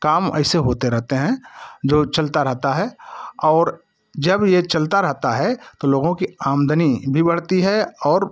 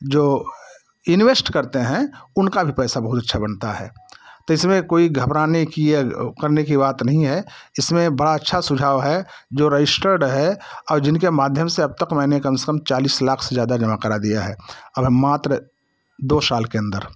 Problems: none marked